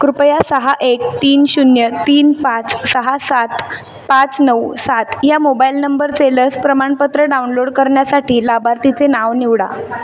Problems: background sounds at intervals, background conversations at intervals